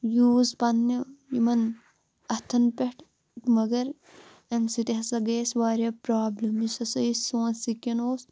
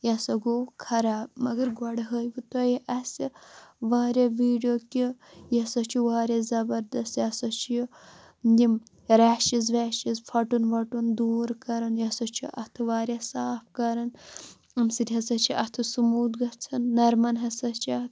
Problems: constant background noise